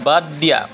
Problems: background conversations at intervals